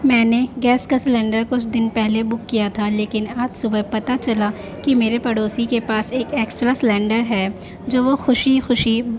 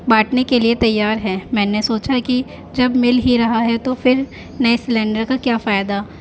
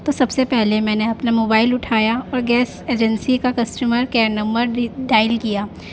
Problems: constant background noise